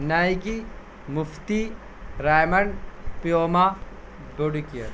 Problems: constant background noise